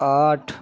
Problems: constant background noise